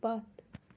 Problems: none marked